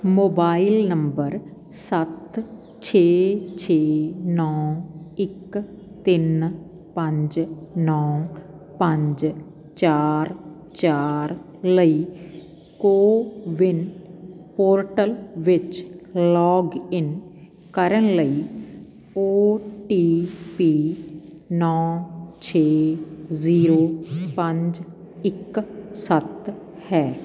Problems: constant background noise